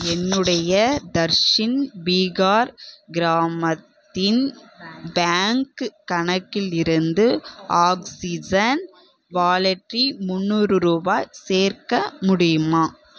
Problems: background conversations at intervals